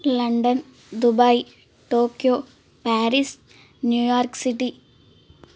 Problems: constant background noise